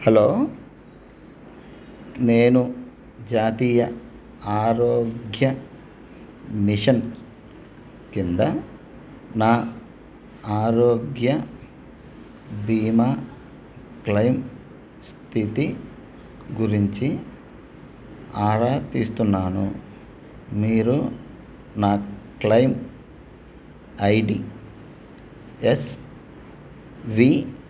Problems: none marked